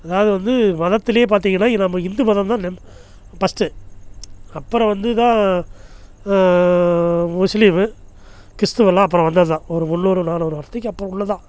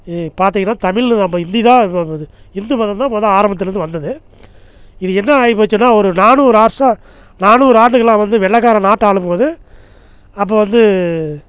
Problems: none marked